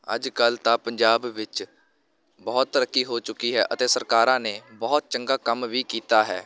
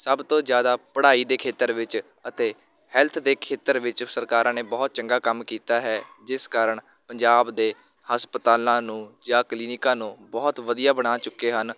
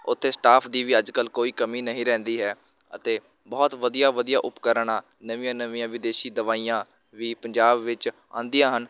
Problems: constant background noise, continuous background conversations